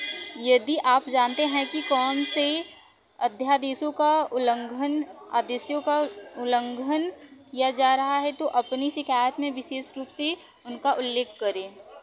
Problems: constant background noise